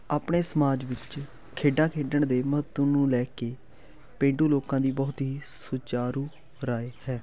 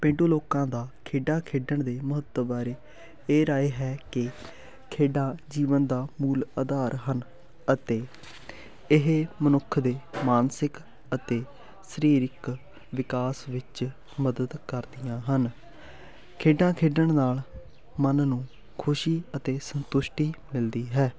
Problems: none marked